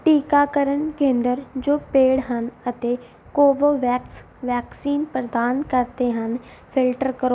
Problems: background sounds at intervals